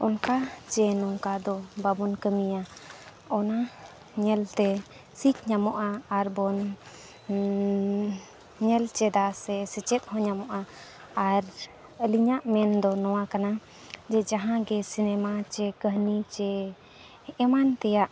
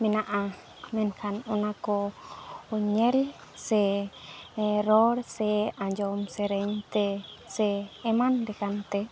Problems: none marked